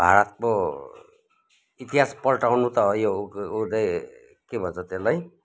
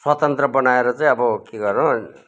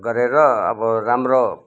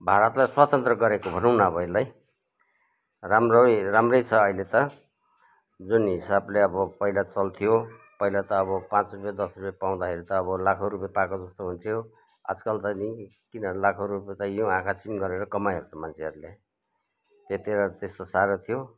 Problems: background conversations at intervals